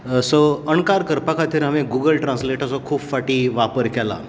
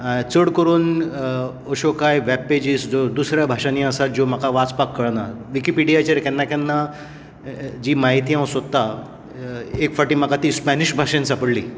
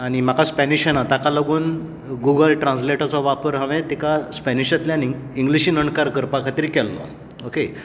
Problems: constant background noise